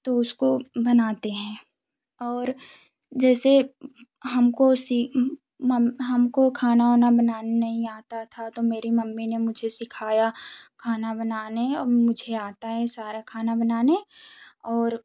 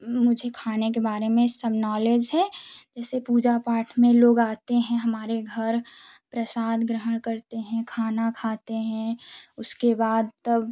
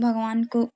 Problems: background sounds at intervals, background conversations at intervals